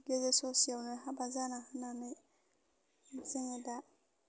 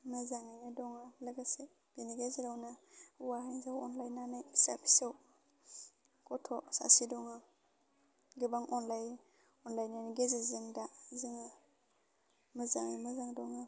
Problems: constant background noise